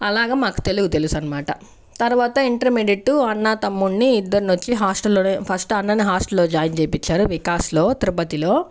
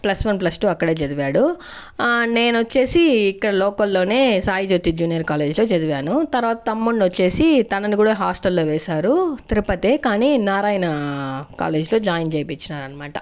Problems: constant background noise